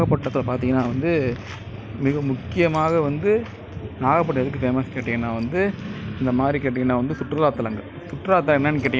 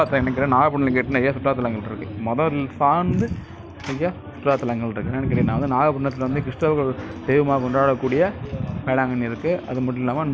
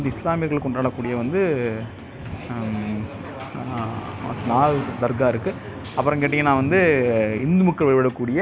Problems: constant background noise